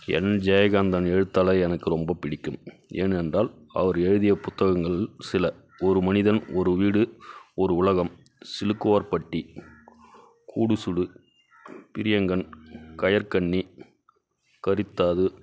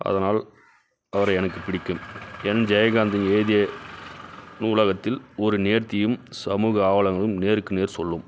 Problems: constant background noise